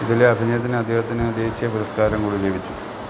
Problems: constant background noise, low volume